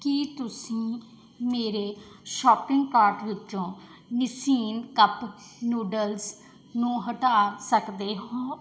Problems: background sounds at intervals